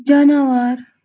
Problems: background sounds at intervals